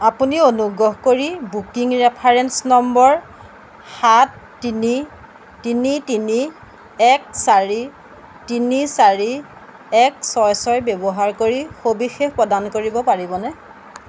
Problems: background sounds at intervals